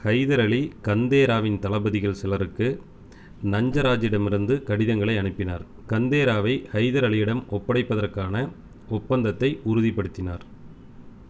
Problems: none marked